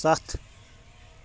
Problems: background sounds at intervals